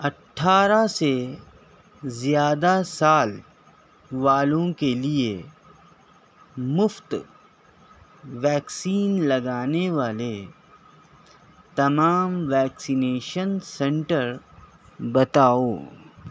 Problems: none marked